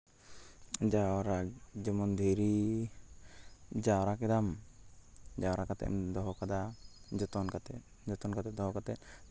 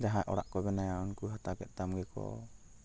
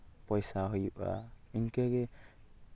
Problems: background sounds at intervals